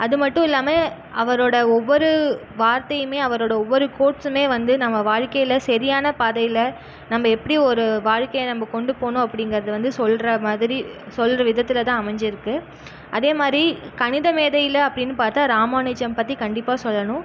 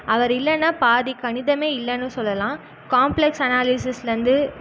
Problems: background sounds at intervals